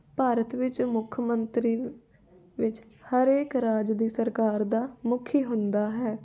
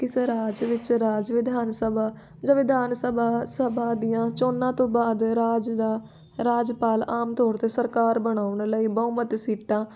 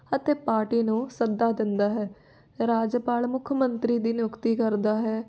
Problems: background conversations at intervals